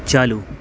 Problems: none marked